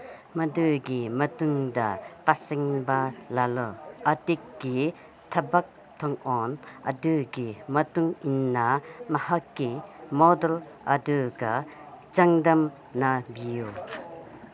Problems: constant background noise, background conversations at intervals